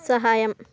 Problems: background conversations at intervals